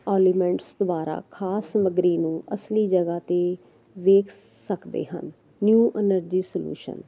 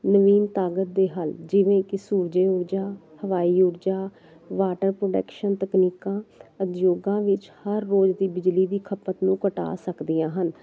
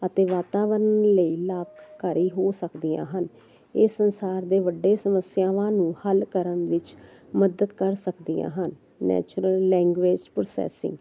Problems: none marked